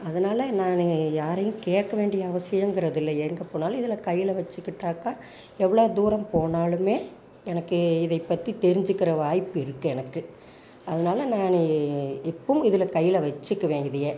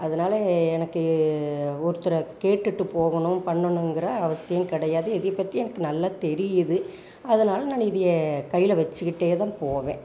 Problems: background sounds at intervals, background conversations at intervals